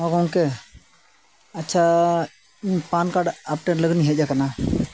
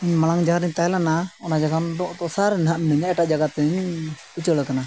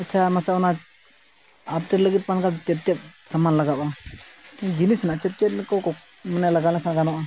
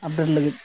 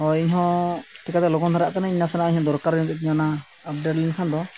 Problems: constant background noise